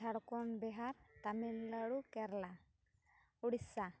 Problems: none marked